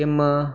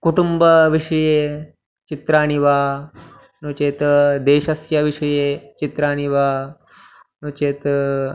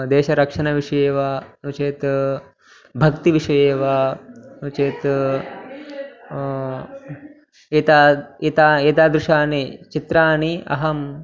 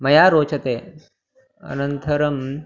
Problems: continuous background conversations